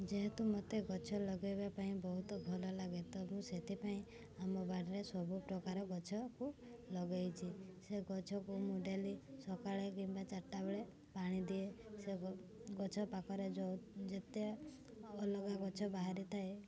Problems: constant background noise, continuous background conversations